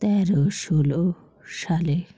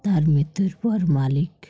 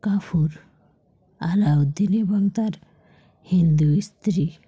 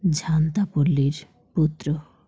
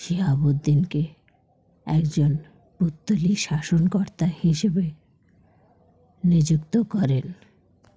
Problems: background sounds at intervals